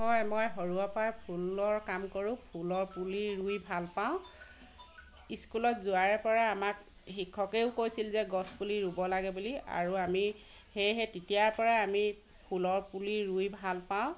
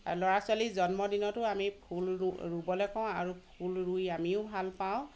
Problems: constant background noise